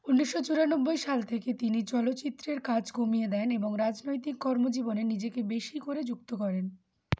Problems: none marked